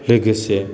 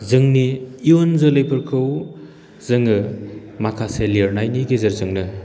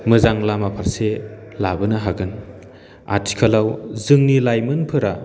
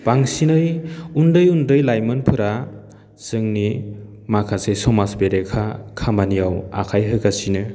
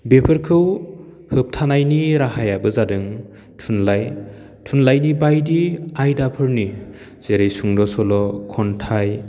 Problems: constant background noise